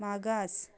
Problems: background sounds at intervals